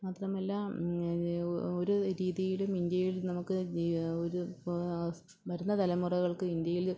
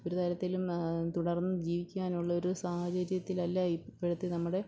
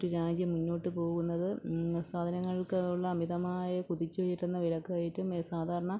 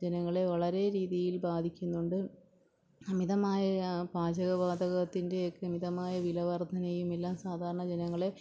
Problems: low volume